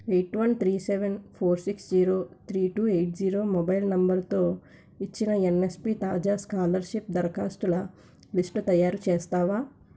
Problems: constant background noise